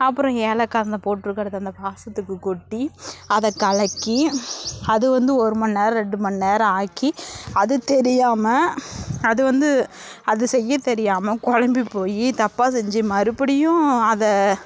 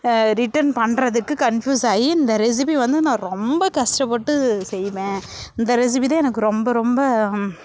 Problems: none marked